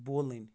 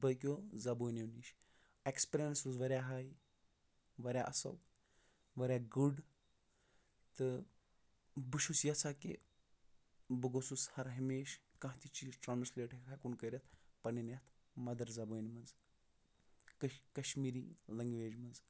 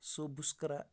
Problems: none marked